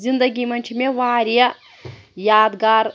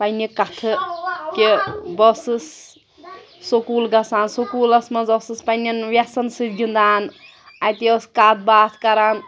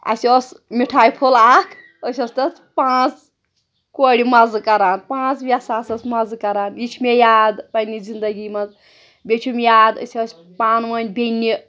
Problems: none marked